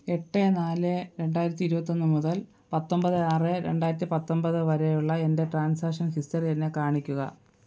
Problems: none marked